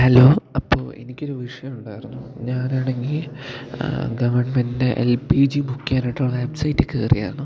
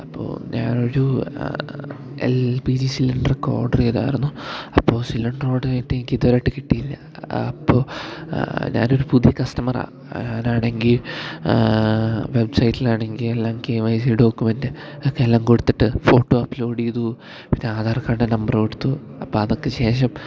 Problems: low volume